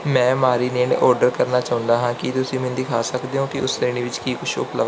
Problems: background sounds at intervals